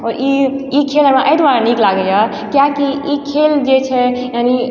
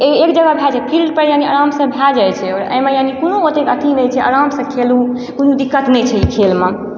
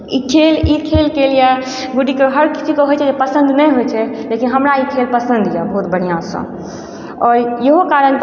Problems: background sounds at intervals, background conversations at intervals